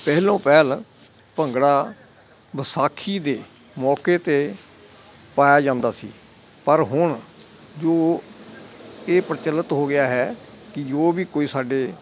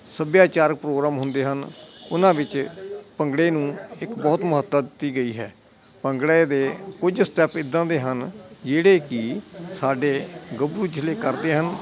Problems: constant background noise